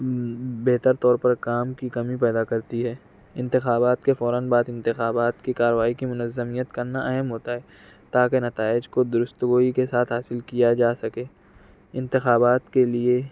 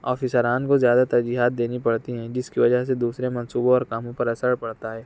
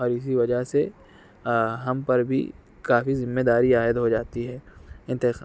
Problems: background sounds at intervals